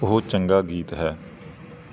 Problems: background sounds at intervals